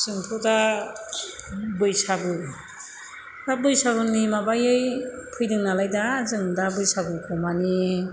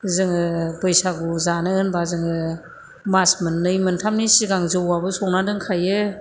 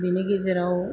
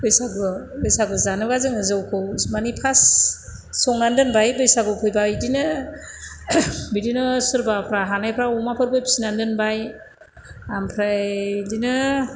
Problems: constant background noise